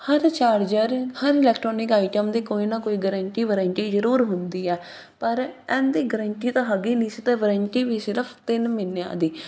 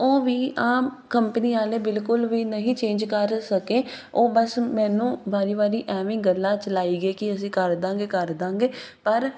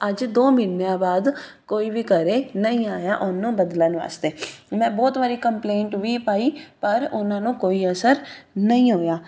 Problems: none marked